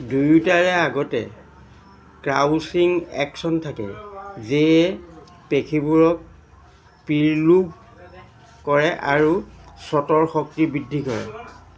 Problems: constant background noise, background conversations at intervals